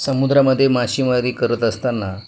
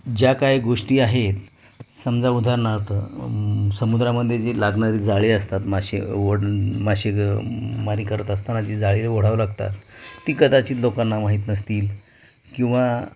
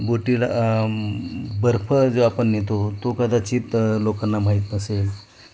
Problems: none marked